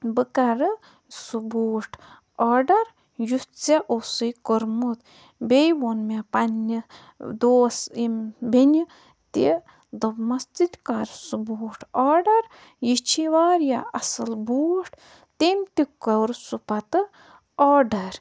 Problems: background sounds at intervals, low volume